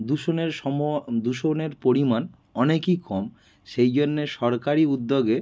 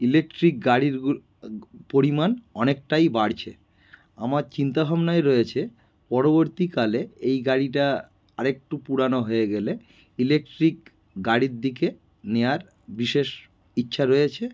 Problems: background sounds at intervals